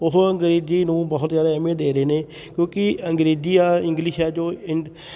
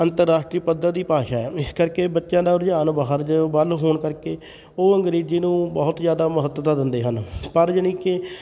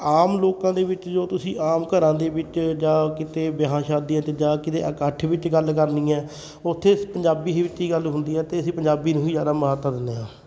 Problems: constant background noise